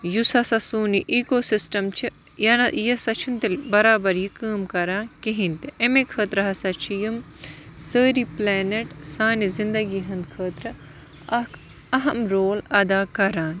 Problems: constant background noise